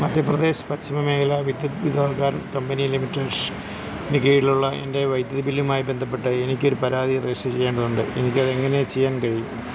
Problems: none marked